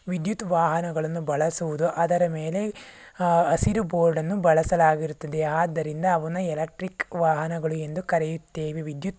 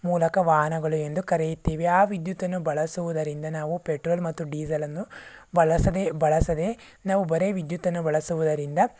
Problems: none marked